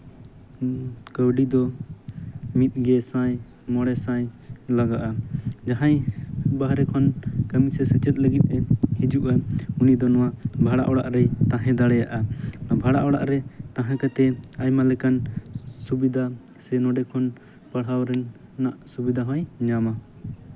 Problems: constant background noise